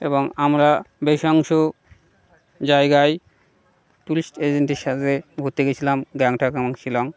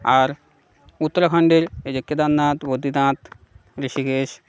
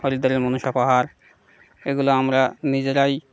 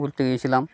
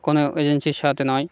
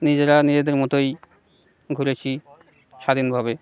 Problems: background sounds at intervals, background conversations at intervals